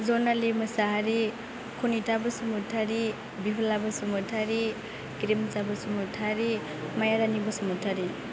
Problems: constant background noise